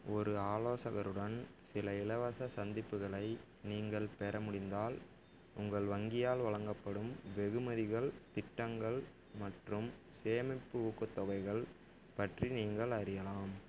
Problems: none marked